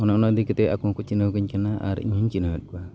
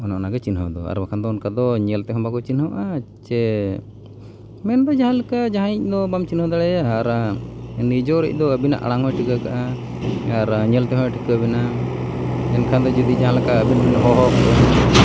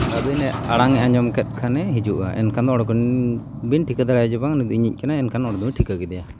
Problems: constant background noise